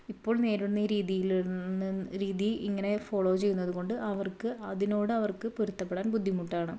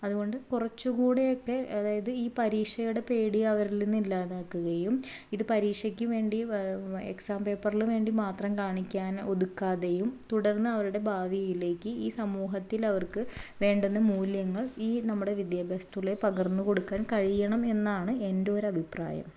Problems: low volume